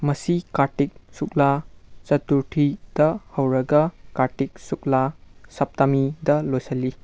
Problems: background sounds at intervals